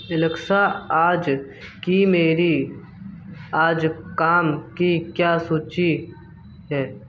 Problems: background sounds at intervals